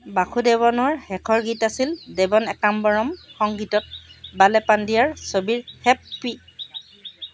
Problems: constant background noise, background conversations at intervals